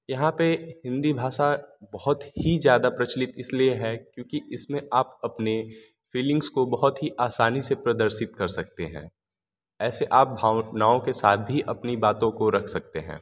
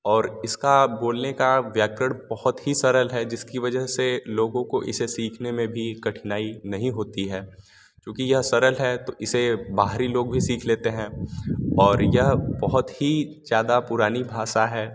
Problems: none marked